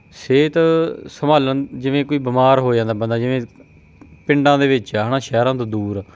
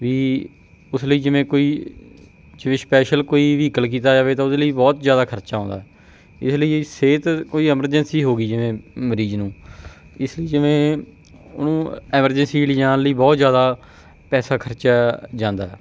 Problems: background sounds at intervals